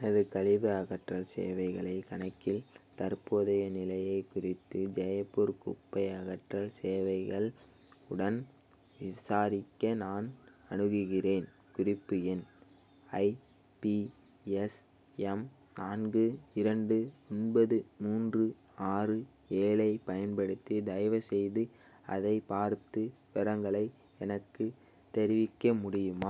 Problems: none marked